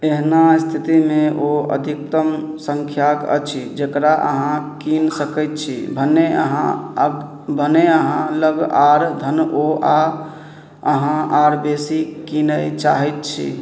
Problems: none marked